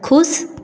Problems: echo